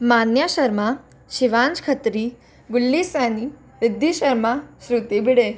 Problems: background conversations at intervals